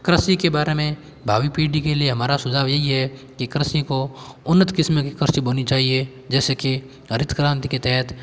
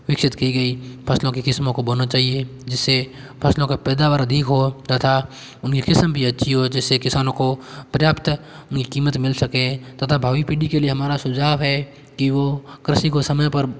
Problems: background sounds at intervals